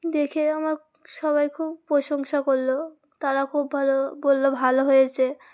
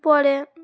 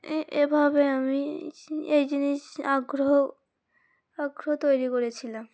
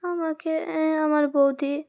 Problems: constant background noise, background conversations at intervals